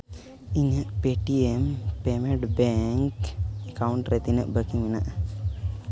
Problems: constant background noise